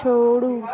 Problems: constant background noise